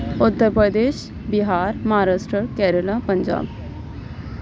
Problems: none marked